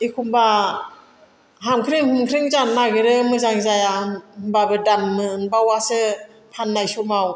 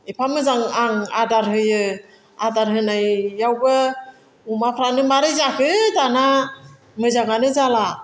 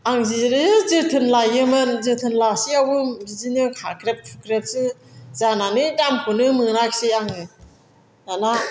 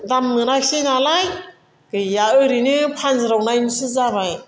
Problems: constant background noise